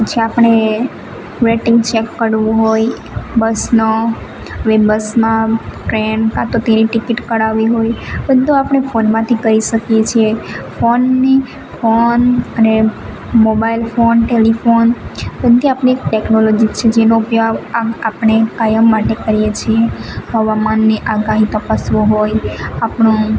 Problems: constant background noise